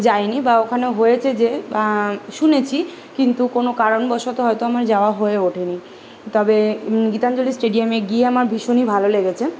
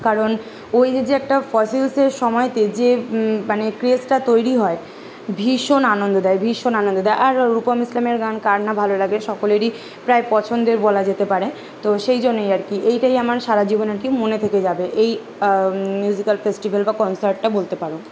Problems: none marked